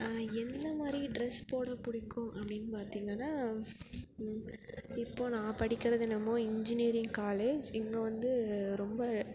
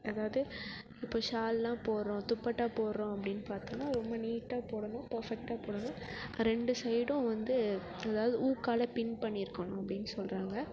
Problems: continuous background conversations